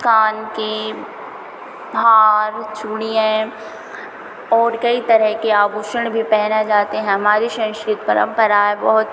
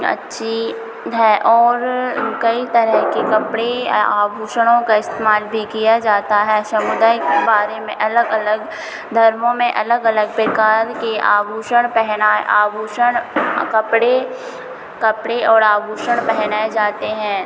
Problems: constant background noise